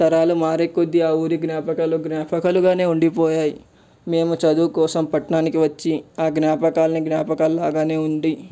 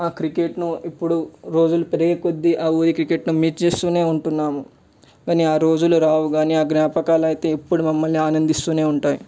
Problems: none marked